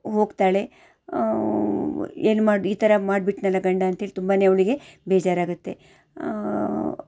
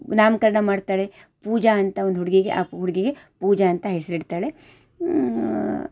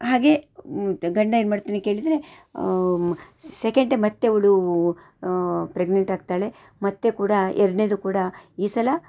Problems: none marked